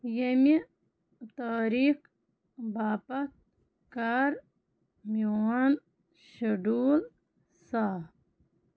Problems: none marked